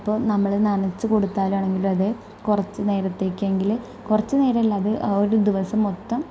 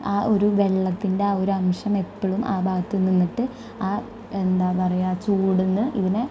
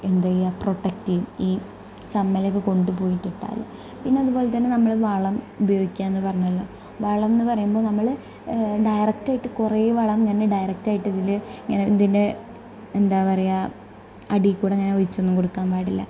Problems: low volume